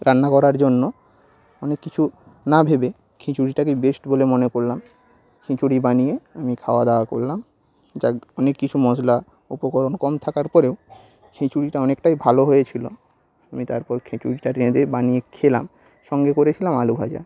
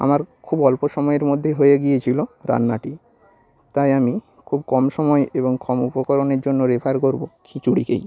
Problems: none marked